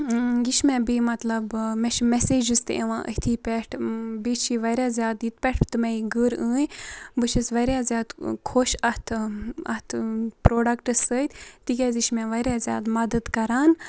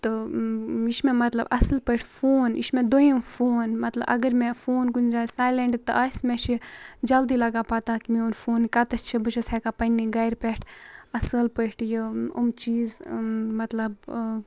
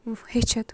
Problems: constant background noise